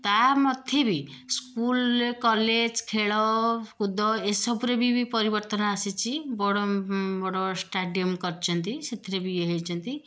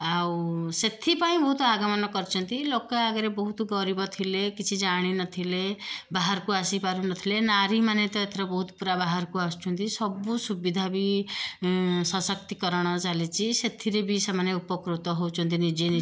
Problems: none marked